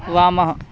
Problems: constant background noise